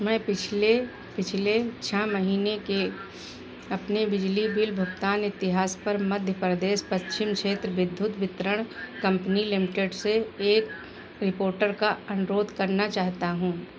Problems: none marked